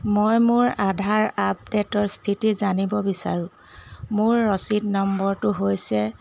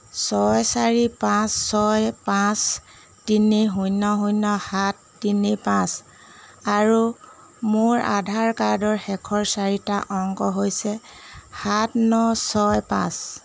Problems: none marked